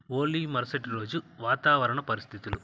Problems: constant background noise